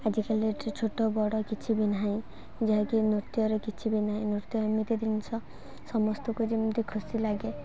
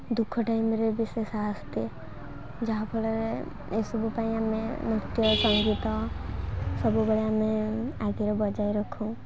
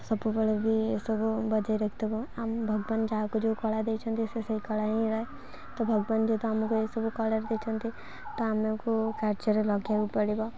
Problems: none marked